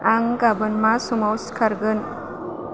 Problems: constant background noise